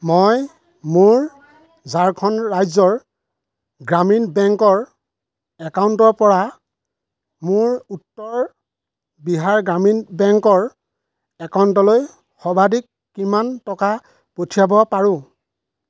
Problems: constant background noise, background conversations at intervals